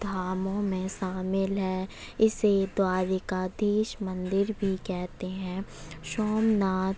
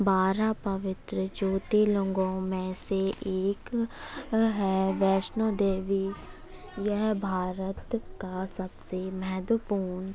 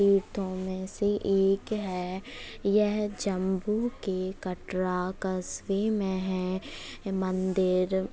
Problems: constant background noise